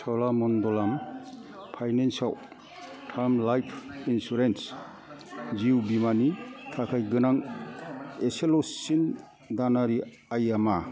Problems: background sounds at intervals, continuous background conversations